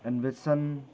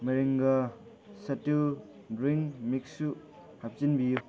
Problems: background conversations at intervals